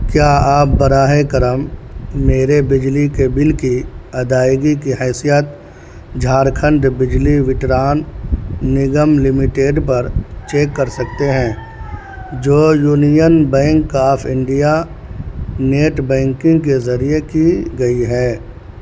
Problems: constant background noise